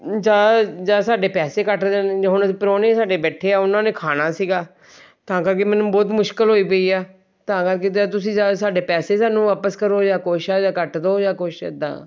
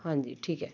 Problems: background sounds at intervals